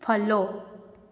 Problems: none marked